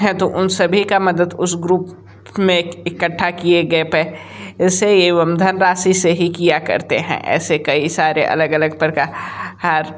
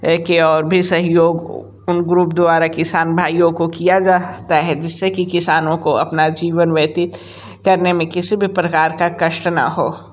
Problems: constant background noise